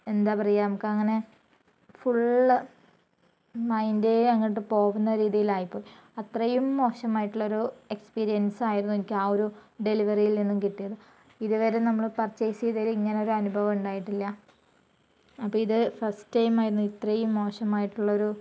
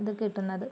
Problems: low volume